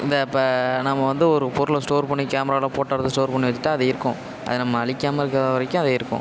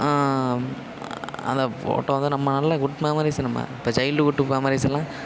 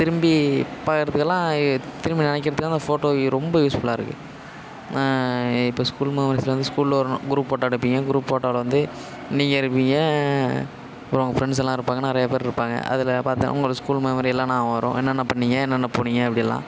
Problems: constant background noise